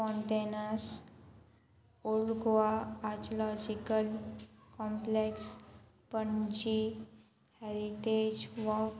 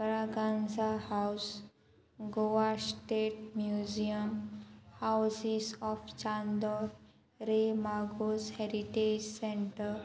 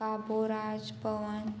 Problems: constant background noise